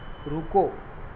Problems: constant background noise, low volume